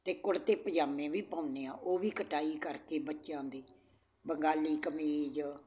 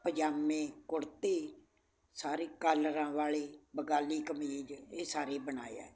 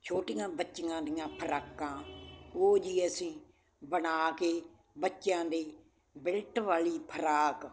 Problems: constant background noise